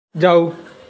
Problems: none marked